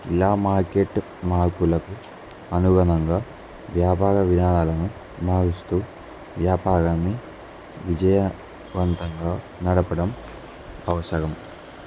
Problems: none marked